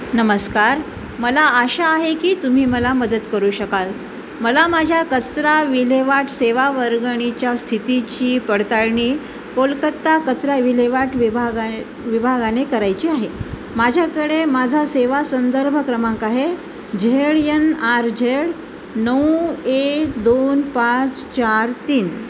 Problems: constant background noise